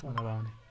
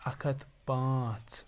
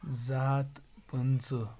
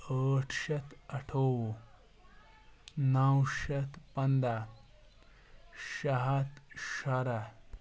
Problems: background sounds at intervals